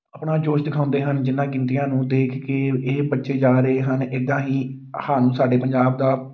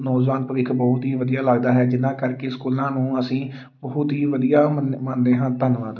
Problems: background sounds at intervals